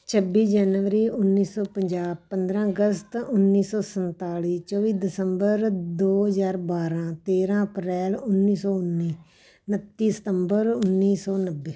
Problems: none marked